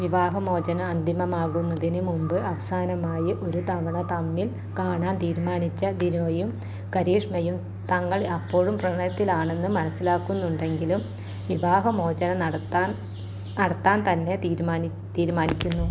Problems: low volume